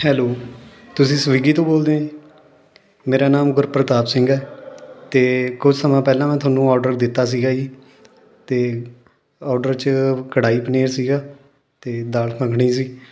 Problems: background sounds at intervals, continuous background conversations